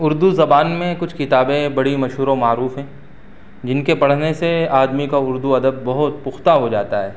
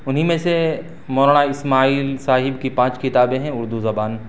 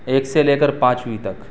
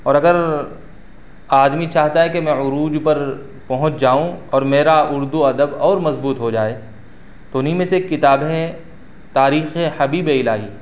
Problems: none marked